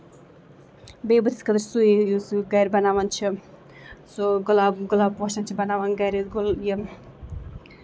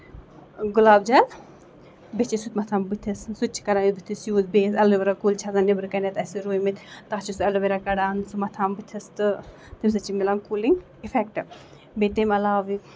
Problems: constant background noise